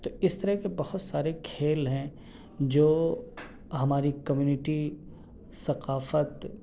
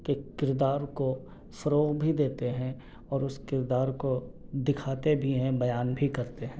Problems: constant background noise